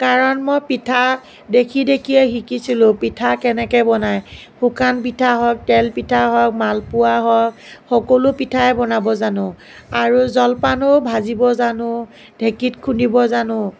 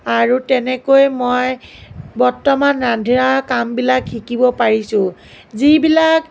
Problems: none marked